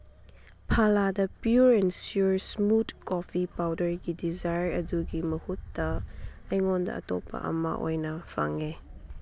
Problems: background sounds at intervals